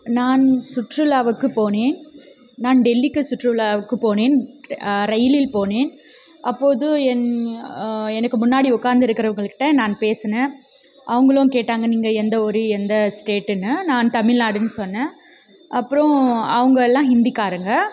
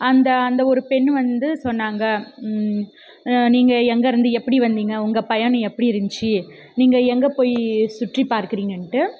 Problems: background conversations at intervals